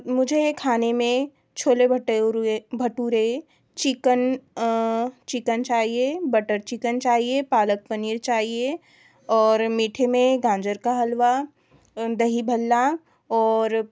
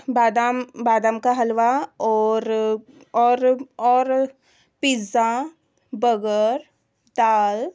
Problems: background sounds at intervals